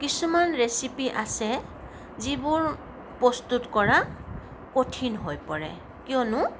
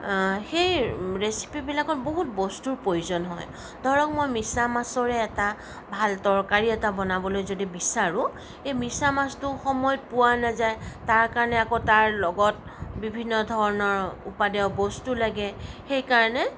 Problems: none marked